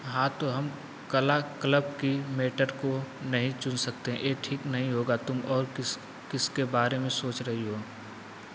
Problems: constant background noise